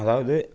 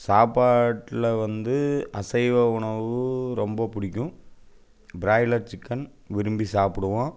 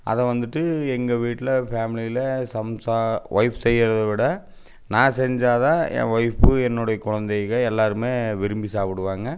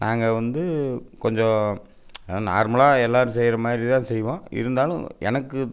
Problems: none marked